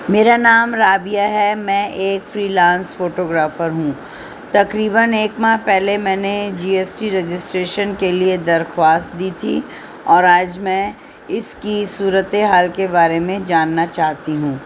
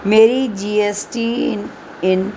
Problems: constant background noise